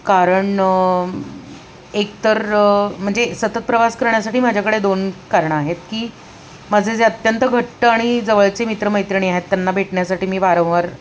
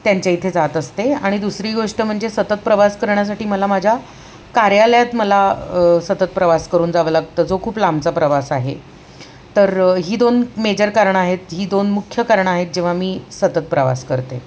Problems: constant background noise, background conversations at intervals